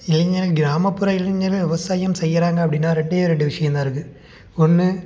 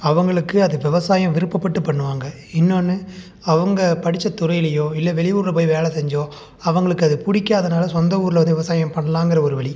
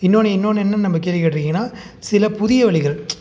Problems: none marked